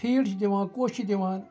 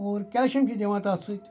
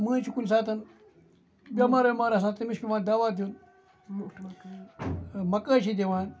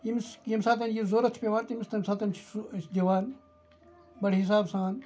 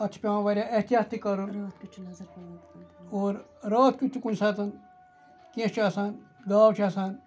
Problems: background sounds at intervals, background conversations at intervals